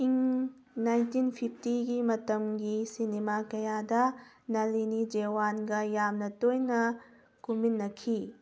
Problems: background sounds at intervals